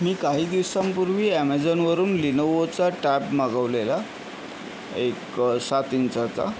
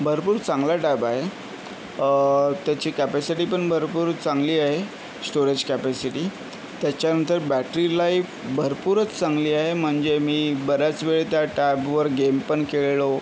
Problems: none marked